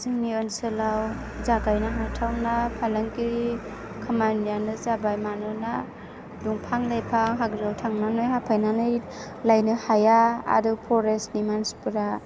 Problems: none marked